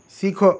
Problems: none marked